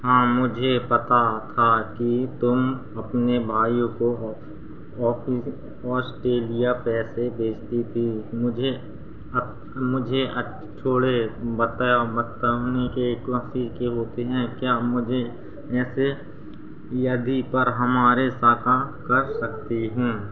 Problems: constant background noise